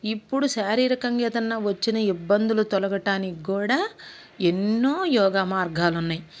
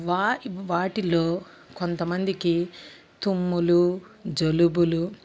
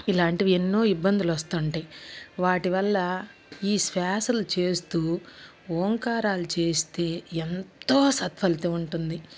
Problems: constant background noise